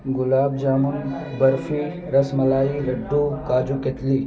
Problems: constant background noise